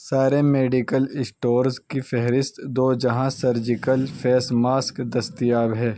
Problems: background sounds at intervals